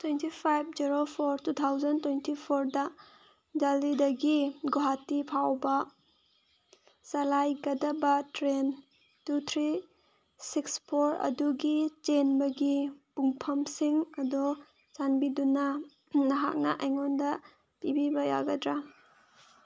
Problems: background sounds at intervals